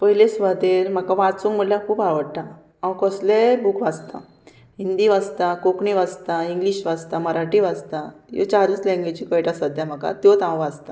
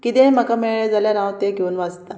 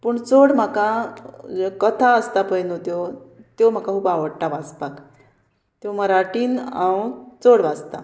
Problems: none marked